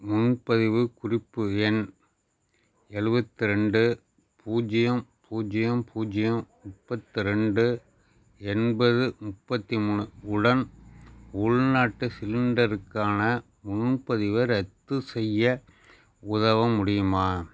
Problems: none marked